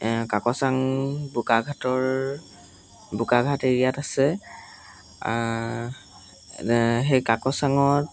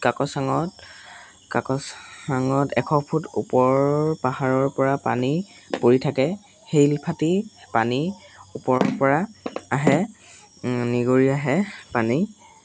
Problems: constant background noise, background conversations at intervals